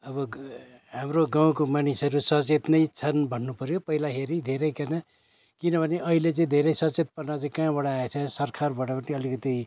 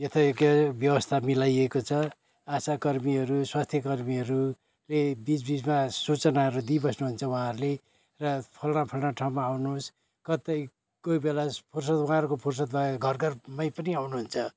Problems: constant background noise, continuous background conversations